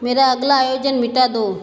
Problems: background sounds at intervals